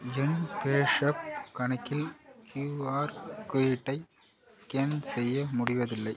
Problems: low volume